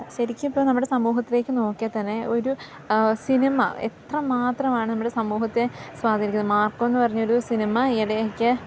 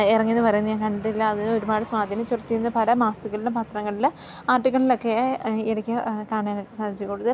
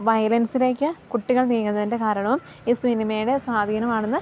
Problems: none marked